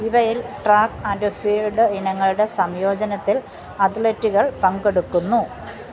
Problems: none marked